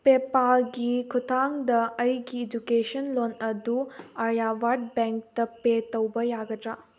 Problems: none marked